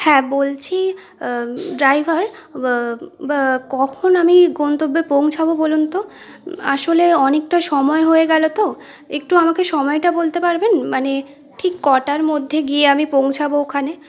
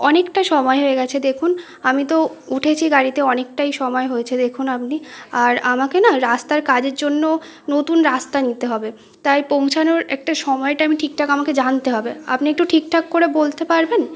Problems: none marked